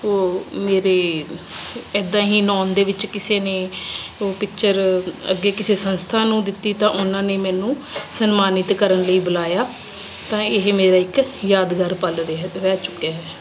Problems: constant background noise